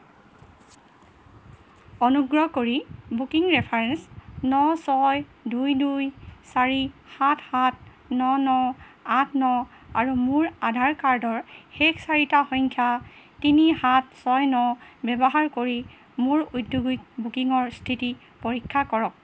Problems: background sounds at intervals